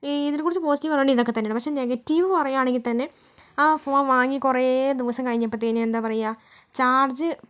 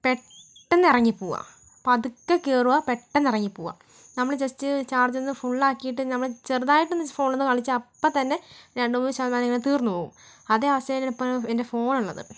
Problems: background sounds at intervals, low volume